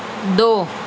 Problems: constant background noise